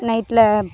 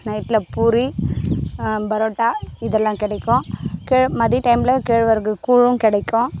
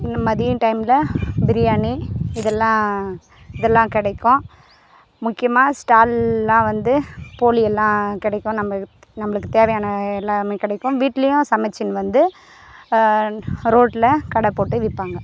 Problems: constant background noise